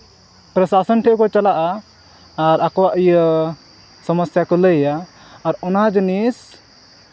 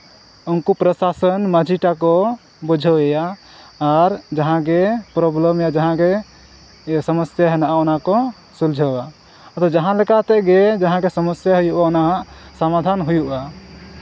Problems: none marked